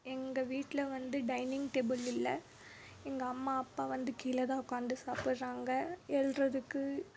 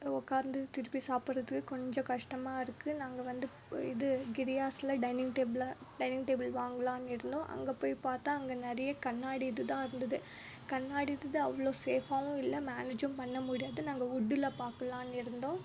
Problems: background sounds at intervals